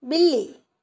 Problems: none marked